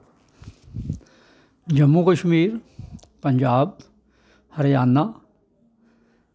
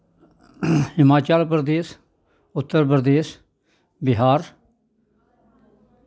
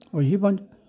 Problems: background sounds at intervals